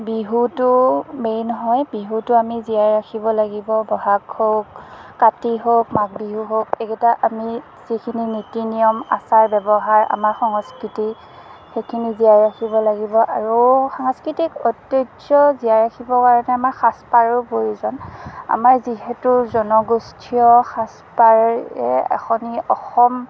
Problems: background sounds at intervals, background conversations at intervals